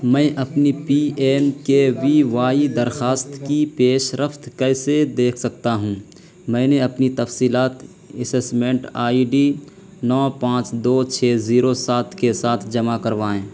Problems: constant background noise